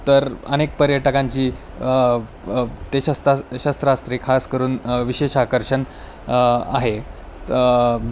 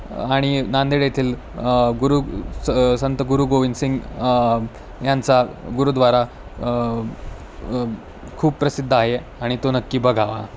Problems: constant background noise